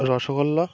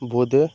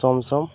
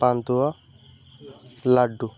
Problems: constant background noise, background conversations at intervals